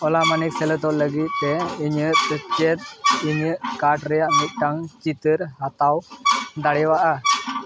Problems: constant background noise